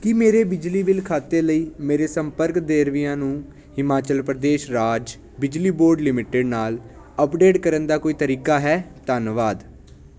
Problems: constant background noise